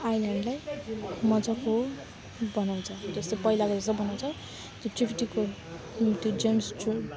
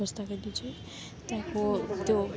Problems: background sounds at intervals